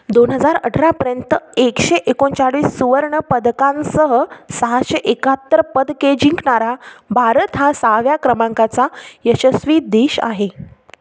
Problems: constant background noise